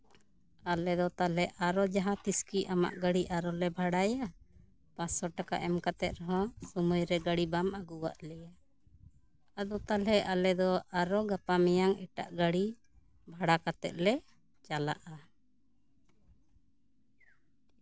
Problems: continuous background conversations